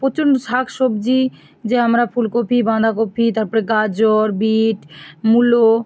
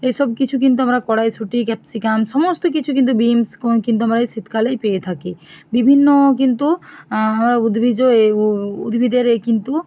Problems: background sounds at intervals